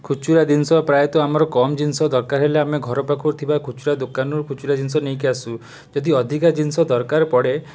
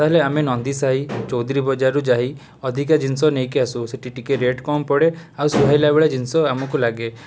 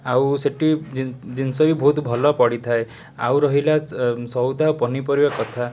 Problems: background sounds at intervals